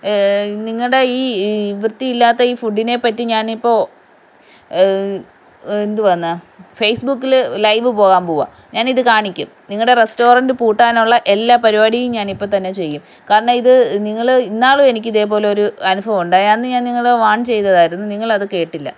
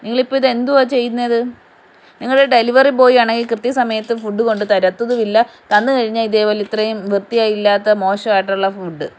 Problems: background sounds at intervals